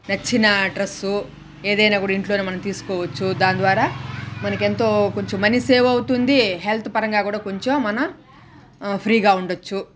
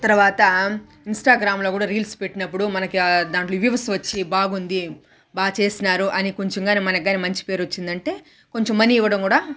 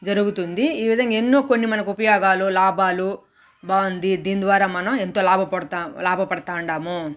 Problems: none marked